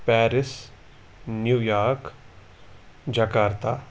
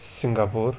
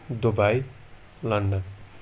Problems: none marked